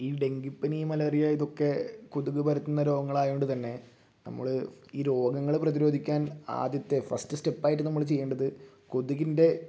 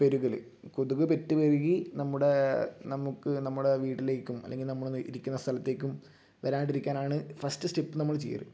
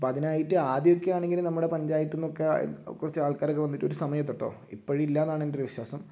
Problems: low volume